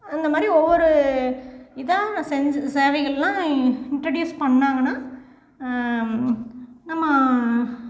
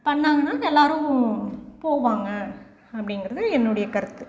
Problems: background sounds at intervals